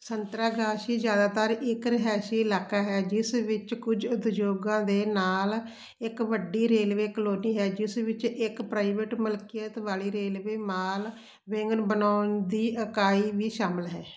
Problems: background sounds at intervals